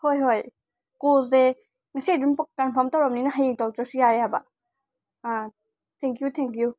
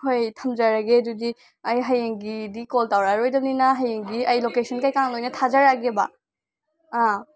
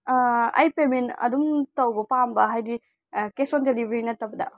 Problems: none marked